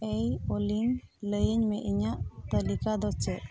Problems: background sounds at intervals, continuous background conversations